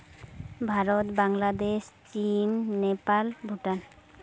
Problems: constant background noise